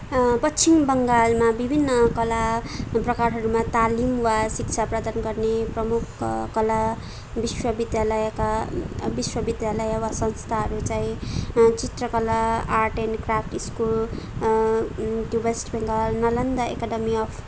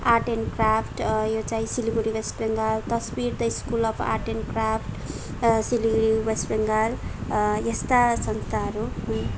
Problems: background sounds at intervals